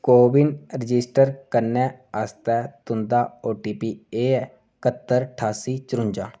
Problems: none marked